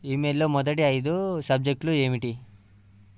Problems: none marked